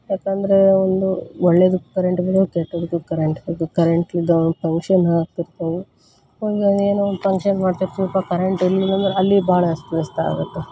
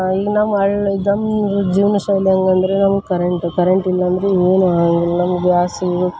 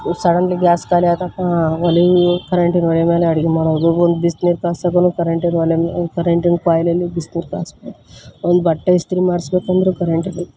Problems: none marked